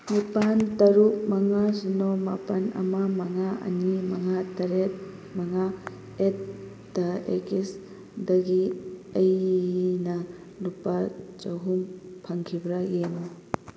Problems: constant background noise